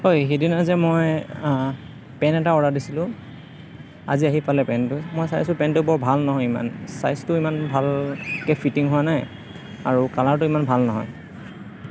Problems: background conversations at intervals